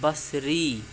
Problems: constant background noise